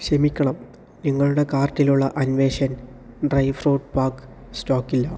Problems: none marked